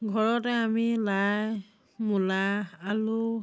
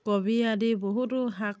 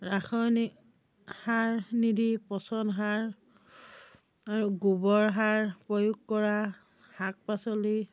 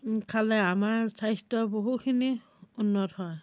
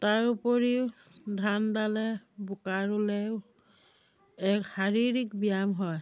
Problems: none marked